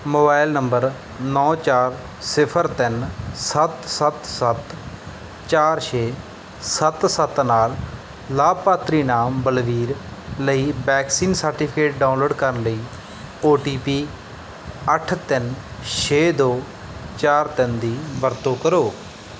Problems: background sounds at intervals